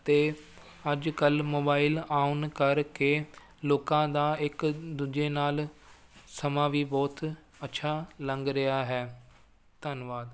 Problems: none marked